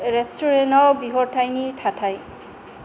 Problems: constant background noise